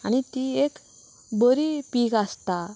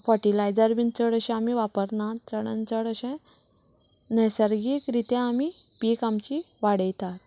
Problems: constant background noise